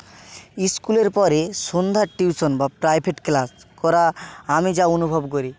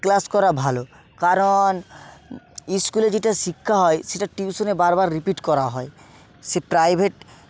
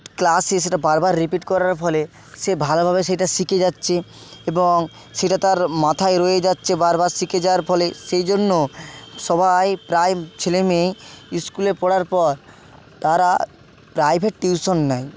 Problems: constant background noise, continuous background conversations